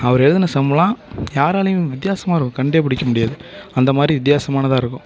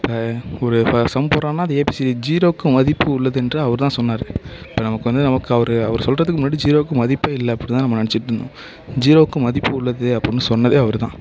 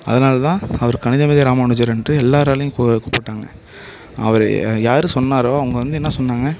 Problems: constant background noise